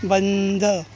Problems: none marked